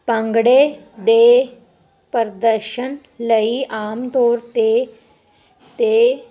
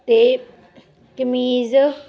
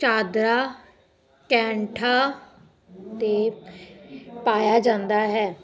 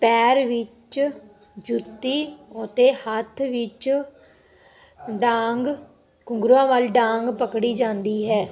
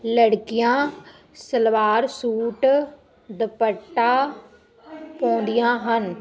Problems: background sounds at intervals, background conversations at intervals